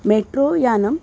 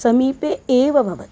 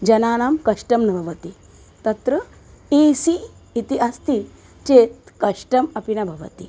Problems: constant background noise